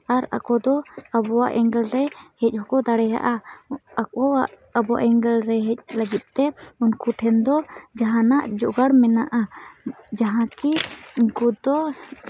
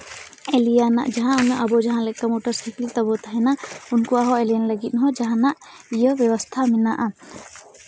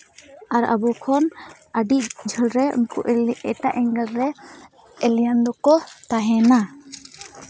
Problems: none marked